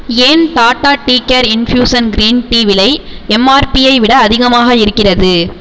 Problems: none marked